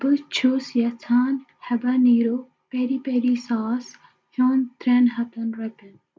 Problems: background sounds at intervals, echo